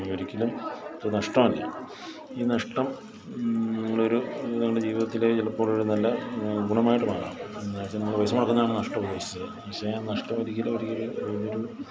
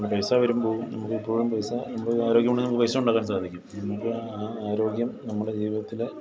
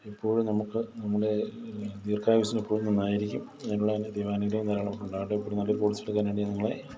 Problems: background conversations at intervals, low volume